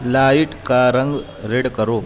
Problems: constant background noise, background conversations at intervals